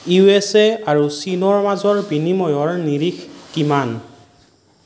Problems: none marked